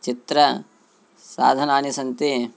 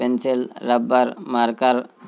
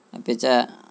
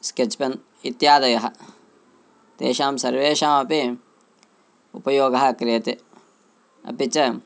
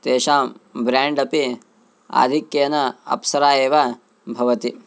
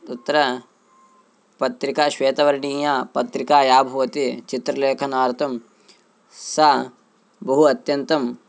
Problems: constant background noise